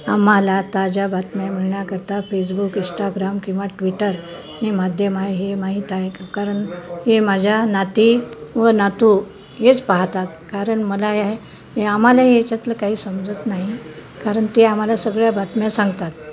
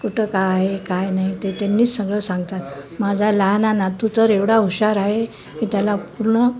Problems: none marked